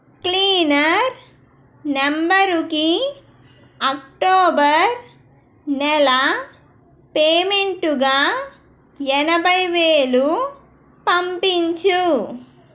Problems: none marked